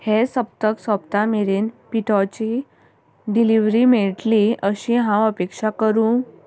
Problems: constant background noise